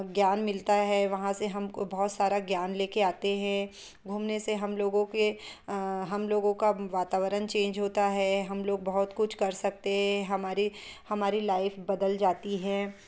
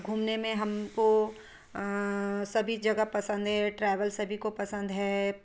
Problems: background sounds at intervals